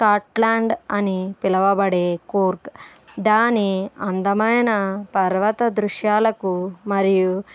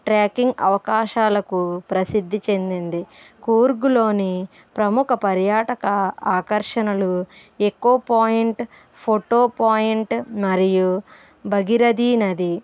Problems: background sounds at intervals, background conversations at intervals